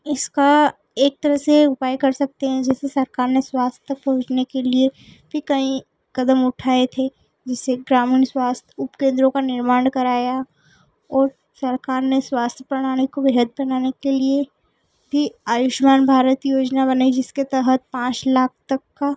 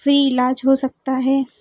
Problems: constant background noise